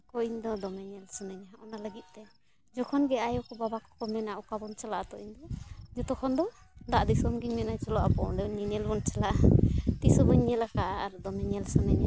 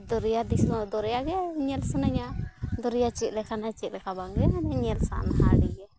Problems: background sounds at intervals